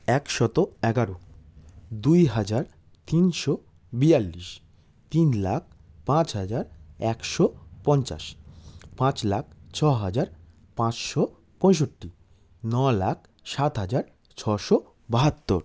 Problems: none marked